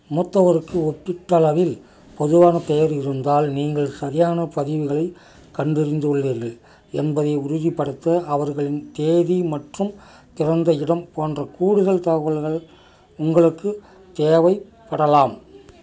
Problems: none marked